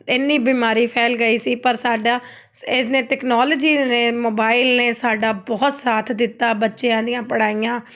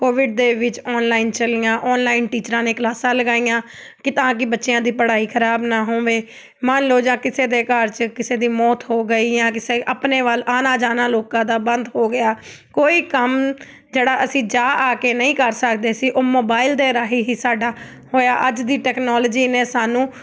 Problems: none marked